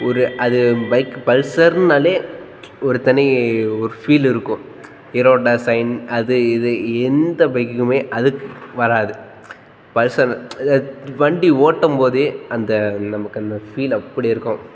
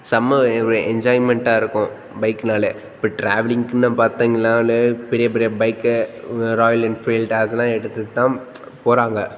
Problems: background sounds at intervals, background conversations at intervals